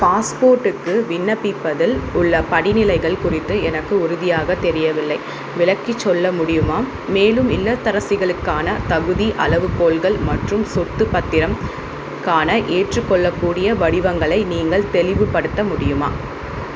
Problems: constant background noise